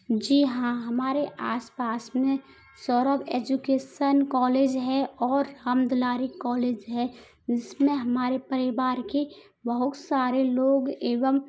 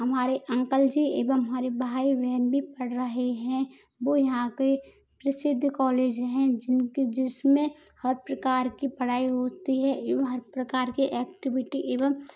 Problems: background sounds at intervals